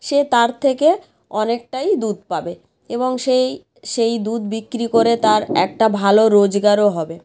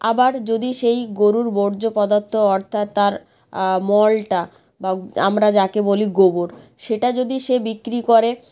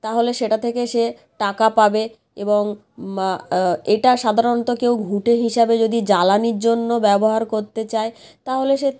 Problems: none marked